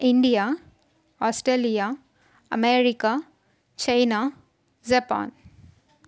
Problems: constant background noise